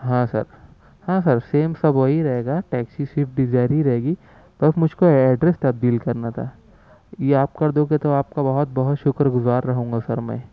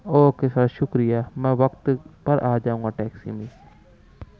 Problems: background sounds at intervals